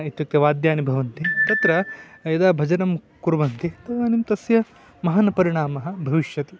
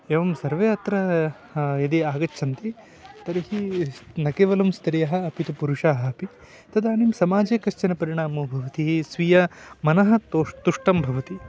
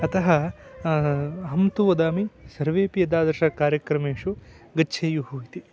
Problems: background sounds at intervals